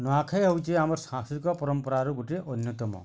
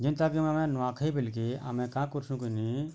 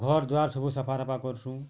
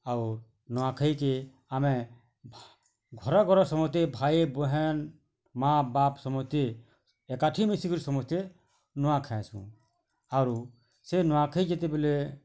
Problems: constant background noise